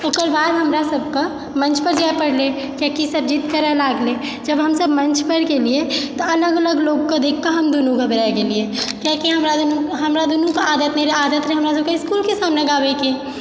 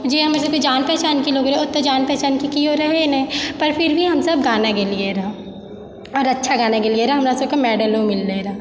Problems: none marked